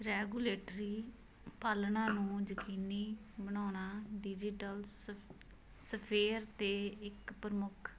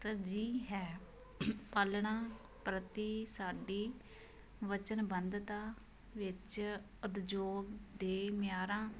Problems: constant background noise